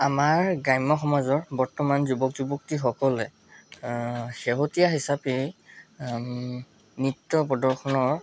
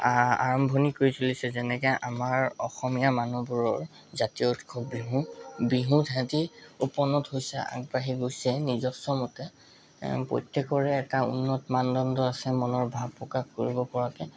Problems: background sounds at intervals